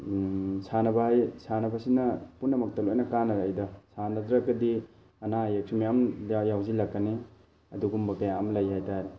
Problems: constant background noise